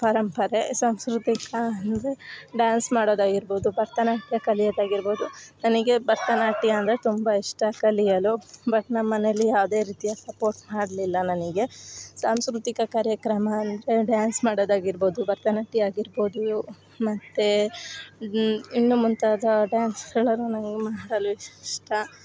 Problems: none marked